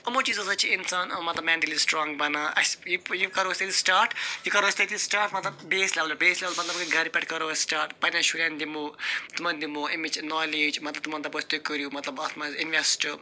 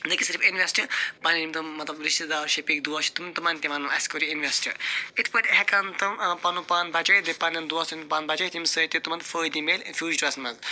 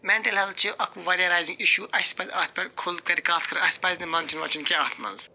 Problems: constant background noise